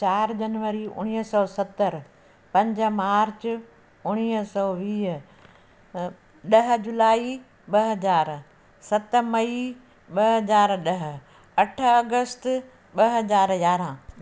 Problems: constant background noise